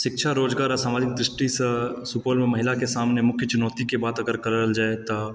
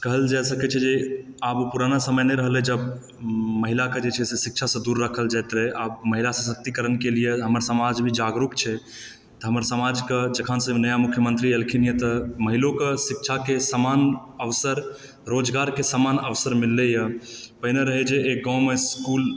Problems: background sounds at intervals